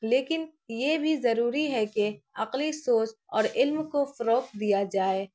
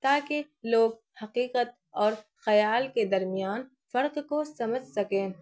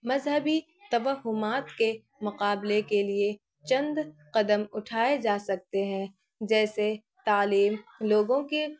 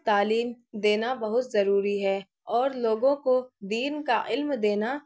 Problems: constant background noise